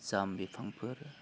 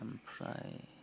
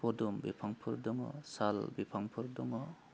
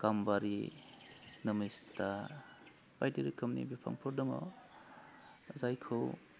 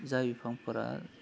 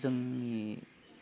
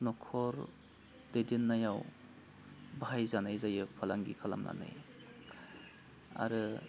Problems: constant background noise